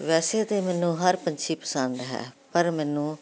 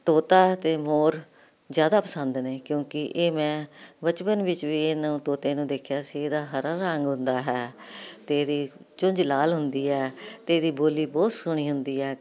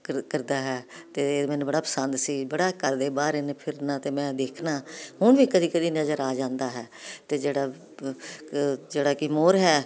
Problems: continuous background conversations